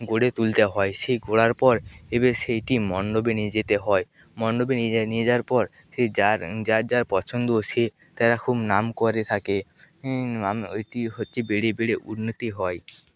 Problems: background sounds at intervals, background conversations at intervals